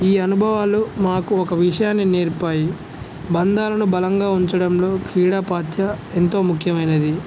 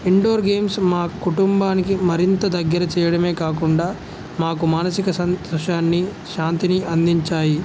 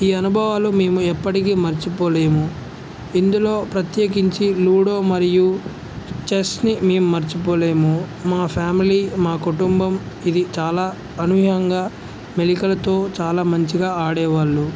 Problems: none marked